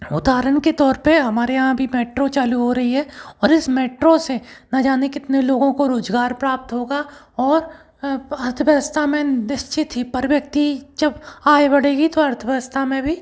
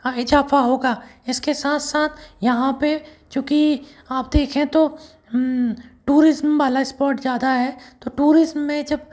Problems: background sounds at intervals